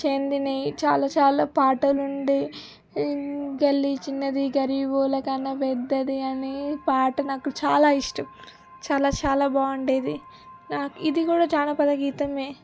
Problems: constant background noise